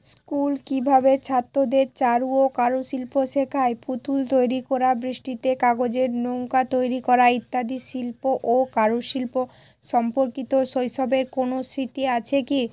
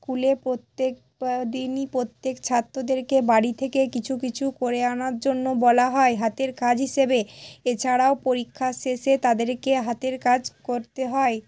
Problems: constant background noise, background conversations at intervals